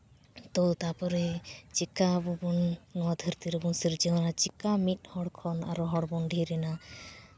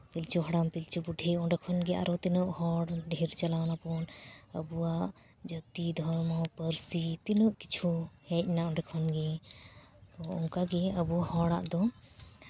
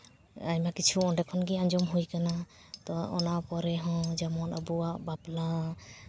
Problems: background sounds at intervals, background conversations at intervals